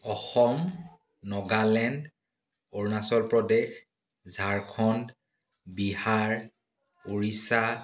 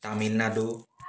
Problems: background conversations at intervals